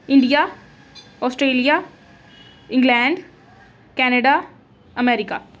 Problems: background sounds at intervals